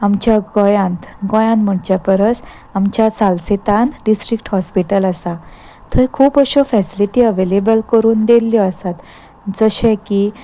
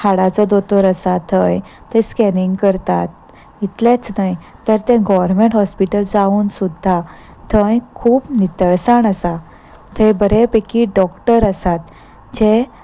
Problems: background sounds at intervals